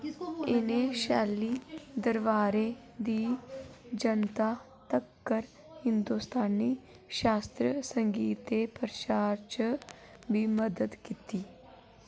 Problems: constant background noise, low volume